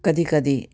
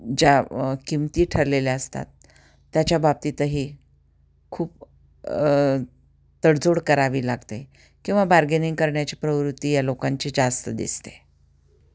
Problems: constant background noise, continuous background conversations